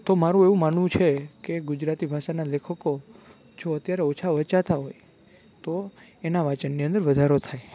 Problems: none marked